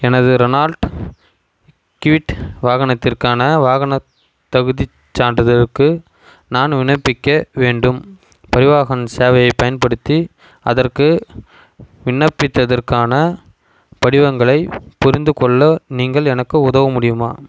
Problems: none marked